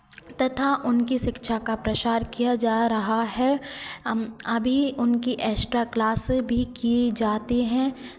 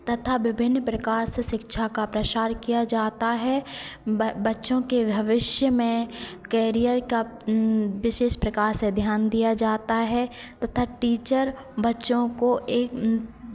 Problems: constant background noise, continuous background conversations